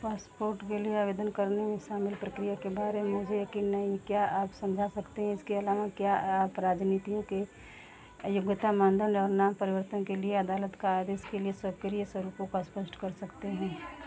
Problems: constant background noise